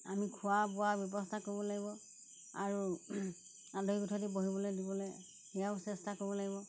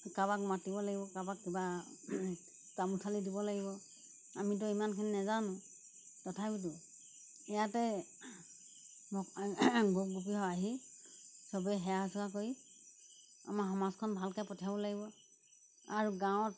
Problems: background sounds at intervals